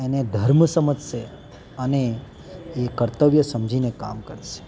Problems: background sounds at intervals, background conversations at intervals